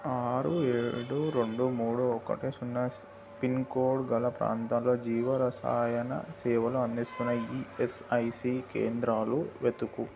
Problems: constant background noise